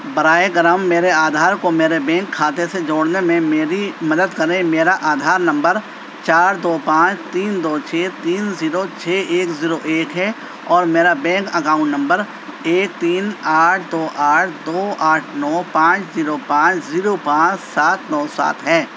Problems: constant background noise